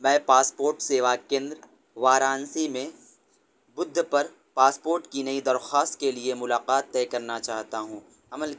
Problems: none marked